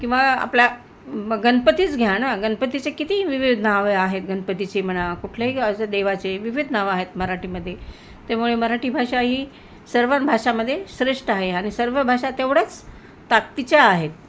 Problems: constant background noise